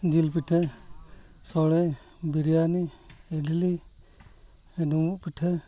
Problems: none marked